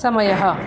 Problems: constant background noise